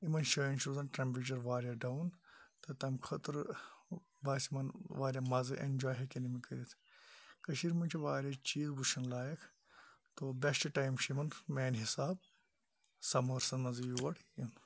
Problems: low volume